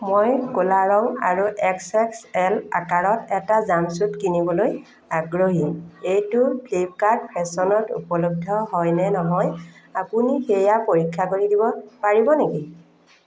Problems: background sounds at intervals, echo